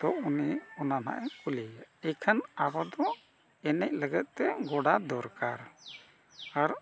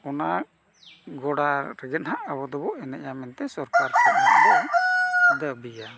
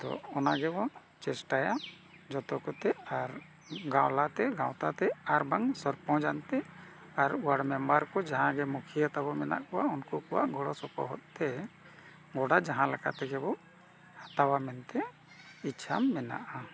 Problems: constant background noise